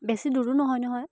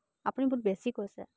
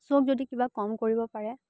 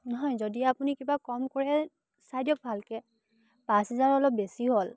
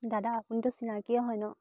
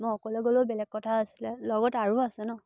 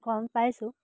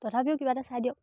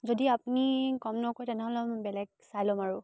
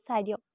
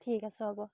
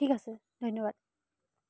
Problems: none marked